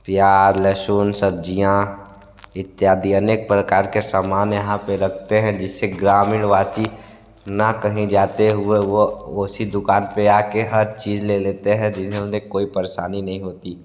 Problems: constant background noise